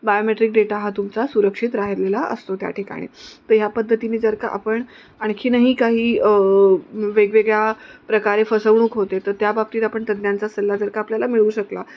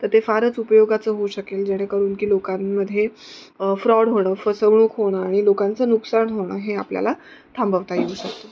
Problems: none marked